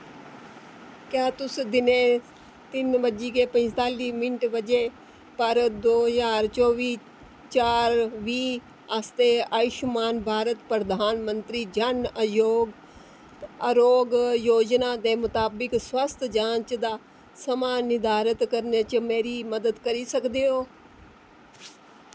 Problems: constant background noise